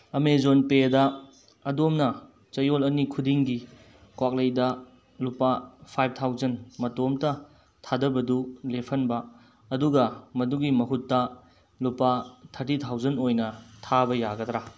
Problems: none marked